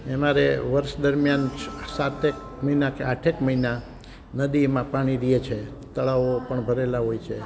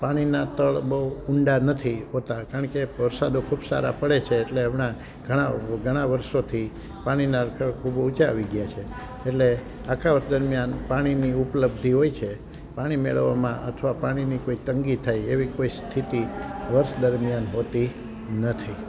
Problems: constant background noise